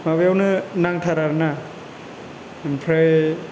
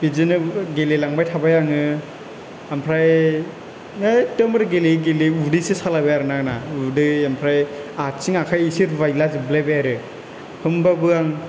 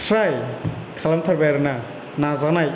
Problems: none marked